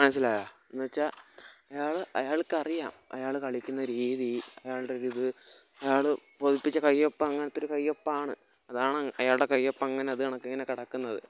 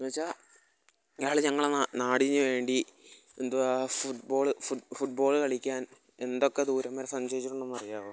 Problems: background sounds at intervals, low volume